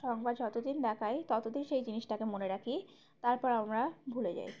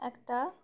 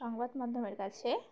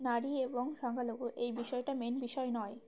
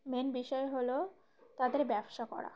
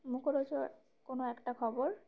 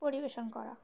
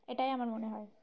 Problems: background sounds at intervals, background conversations at intervals